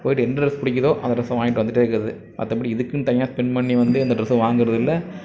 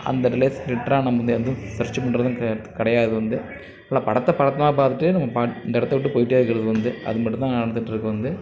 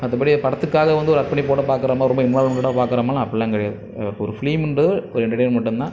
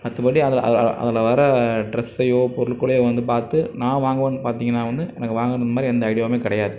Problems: constant background noise, background conversations at intervals